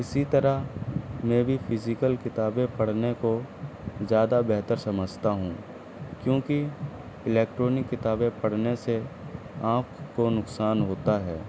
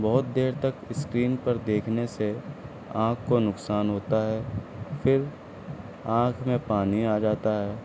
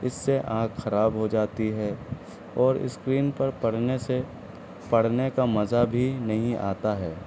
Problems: constant background noise, low volume